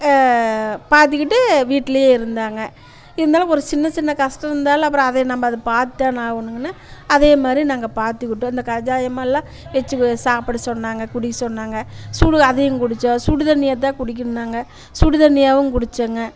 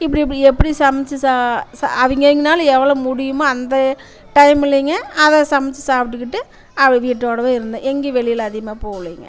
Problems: constant background noise, continuous background conversations